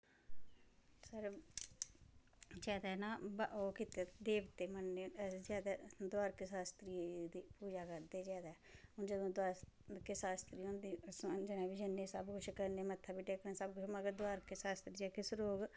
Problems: background sounds at intervals